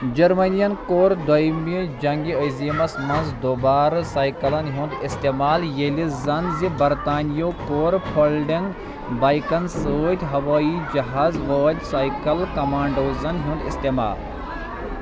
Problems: constant background noise